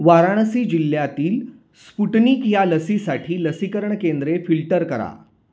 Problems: background sounds at intervals